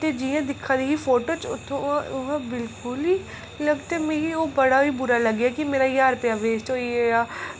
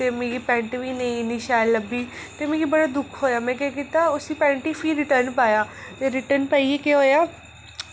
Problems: constant background noise